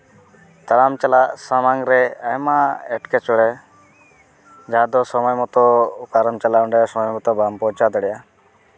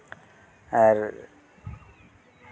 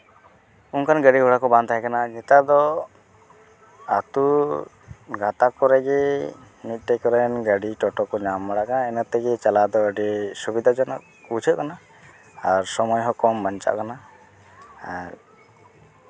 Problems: none marked